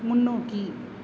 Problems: none marked